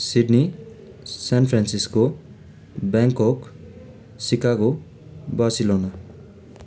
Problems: constant background noise